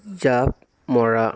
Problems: continuous background conversations